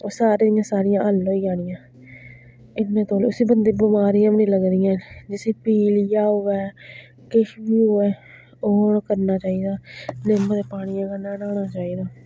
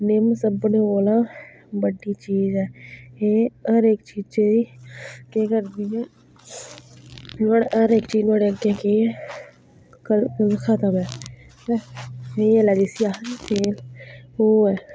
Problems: none marked